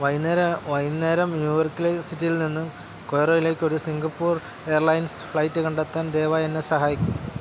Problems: constant background noise